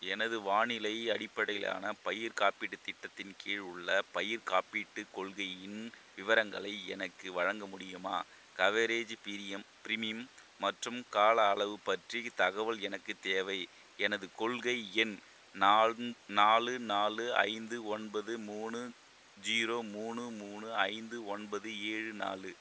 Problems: constant background noise